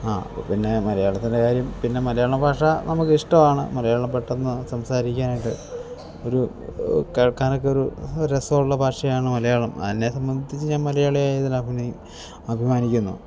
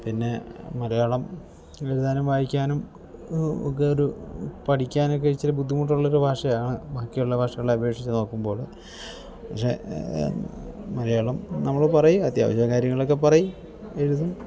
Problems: low volume